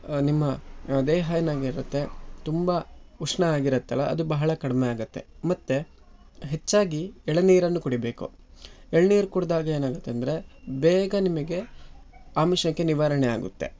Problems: none marked